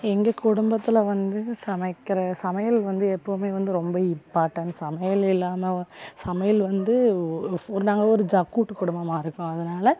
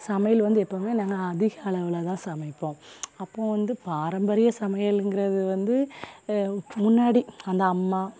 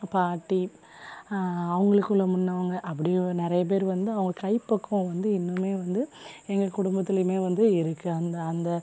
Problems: none marked